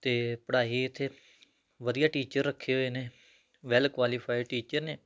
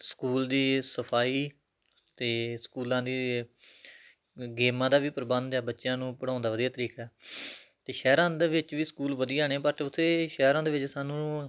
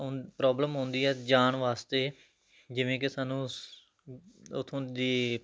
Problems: background sounds at intervals